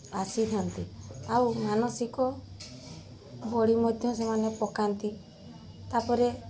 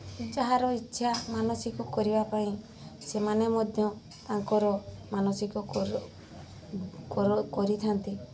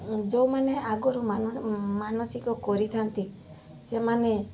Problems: constant background noise